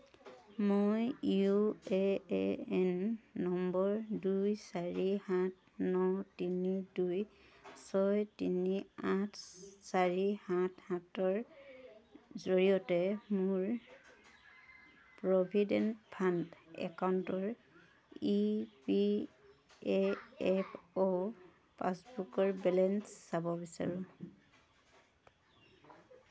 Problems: constant background noise, background conversations at intervals